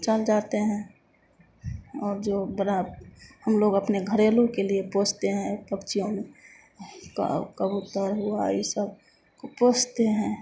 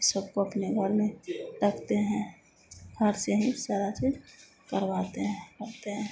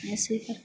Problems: none marked